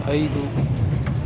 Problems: constant background noise